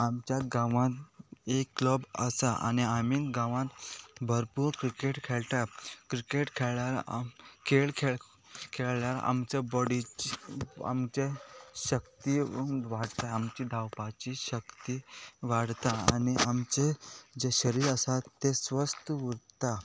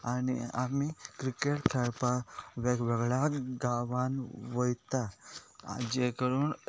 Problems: background sounds at intervals